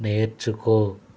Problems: constant background noise